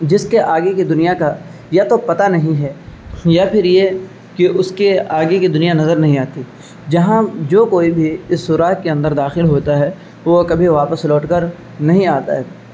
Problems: constant background noise